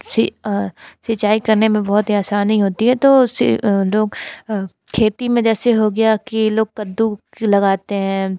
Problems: constant background noise